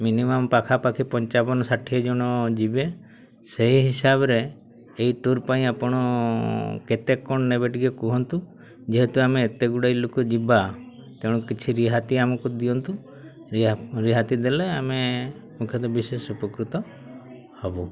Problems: constant background noise, continuous background conversations